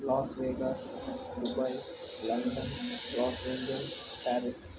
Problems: constant background noise